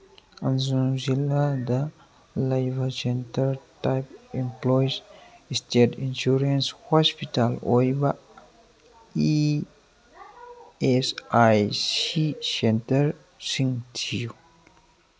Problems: background sounds at intervals